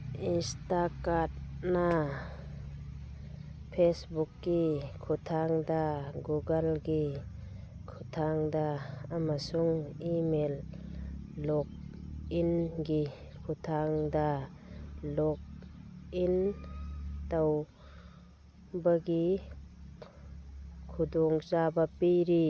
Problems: background sounds at intervals